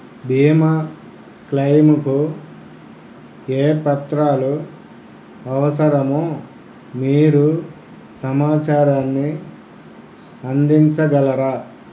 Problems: none marked